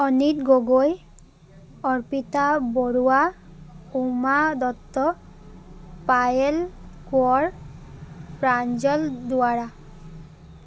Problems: none marked